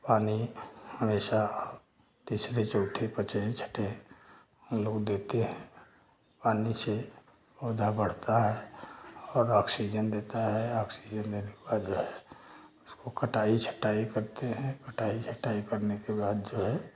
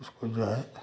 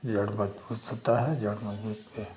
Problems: none marked